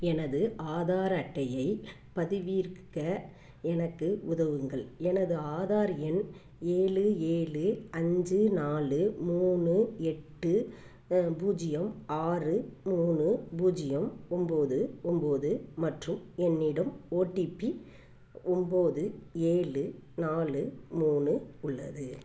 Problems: background sounds at intervals